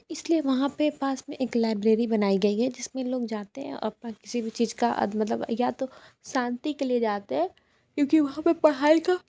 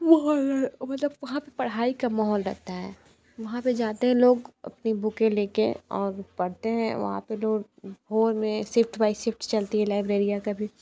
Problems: none marked